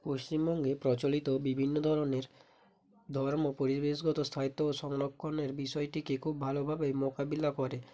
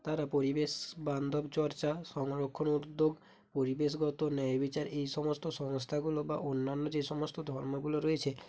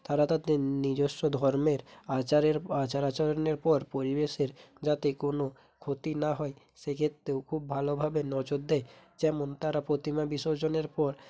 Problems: none marked